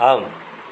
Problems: constant background noise